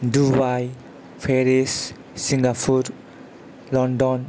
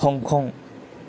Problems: none marked